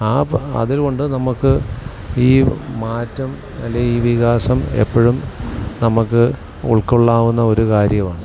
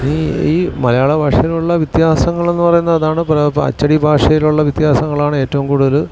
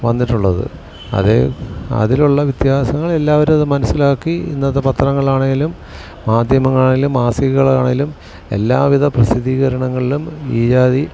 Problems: constant background noise